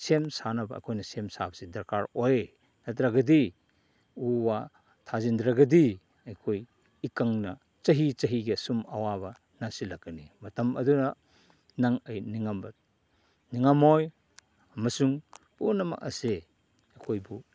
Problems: none marked